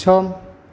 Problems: none marked